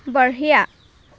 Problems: constant background noise